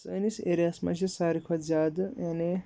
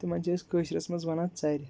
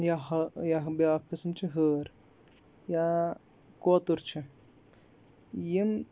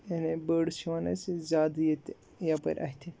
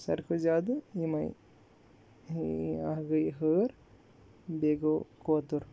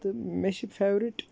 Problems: background sounds at intervals